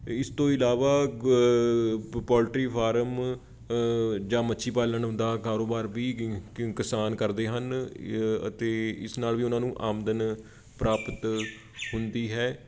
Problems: background sounds at intervals